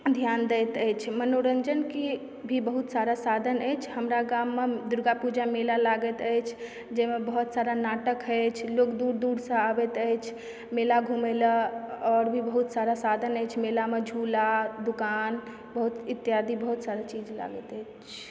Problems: background sounds at intervals